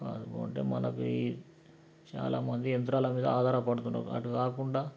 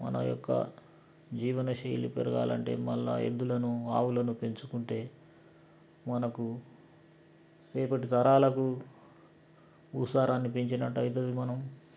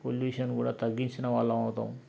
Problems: background sounds at intervals